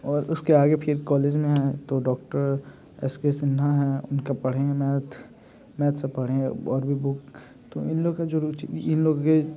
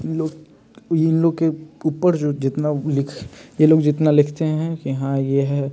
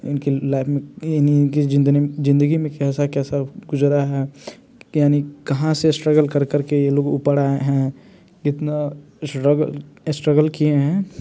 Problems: constant background noise